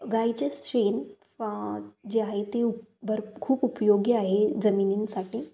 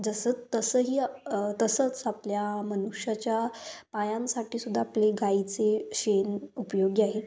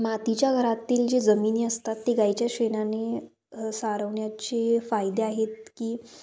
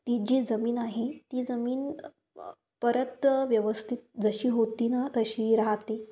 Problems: constant background noise, continuous background conversations